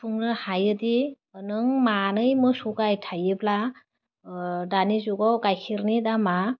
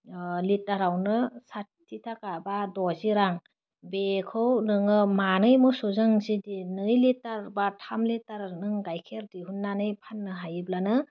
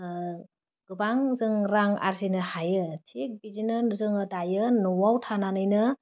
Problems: none marked